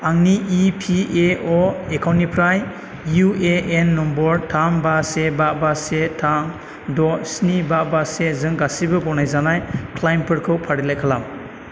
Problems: constant background noise